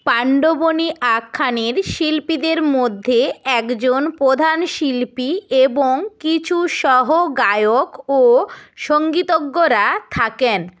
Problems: none marked